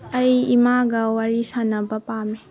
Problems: none marked